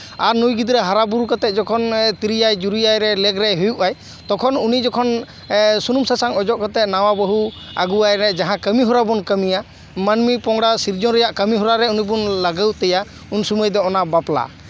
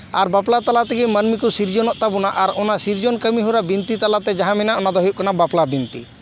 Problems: none marked